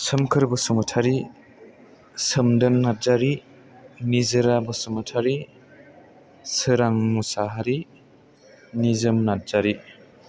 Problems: none marked